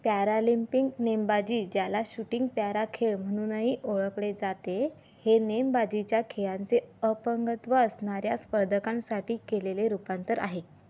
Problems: background sounds at intervals